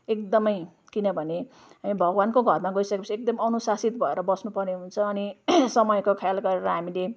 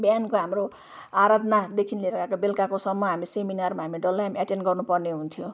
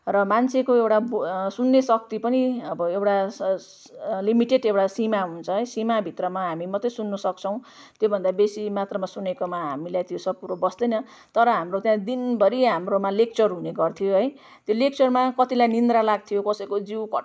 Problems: none marked